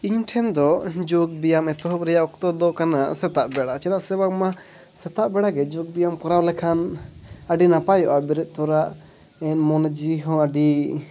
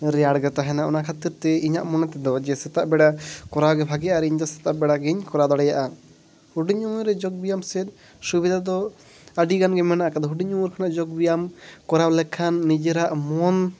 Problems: background sounds at intervals, background conversations at intervals